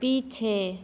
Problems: none marked